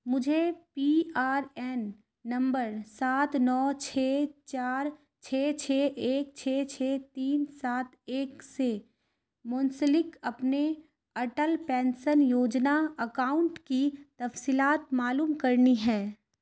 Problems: constant background noise